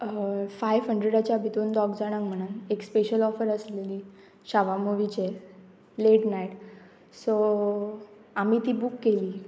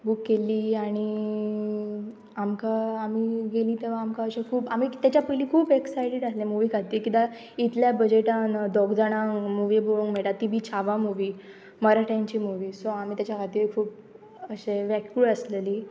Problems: none marked